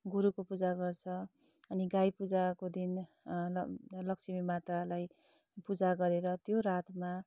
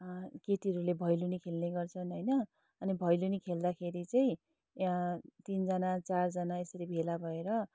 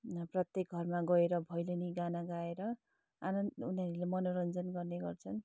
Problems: none marked